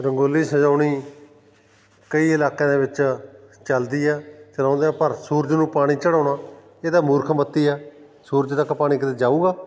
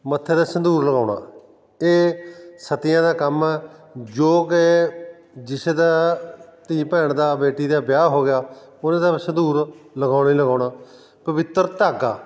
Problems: none marked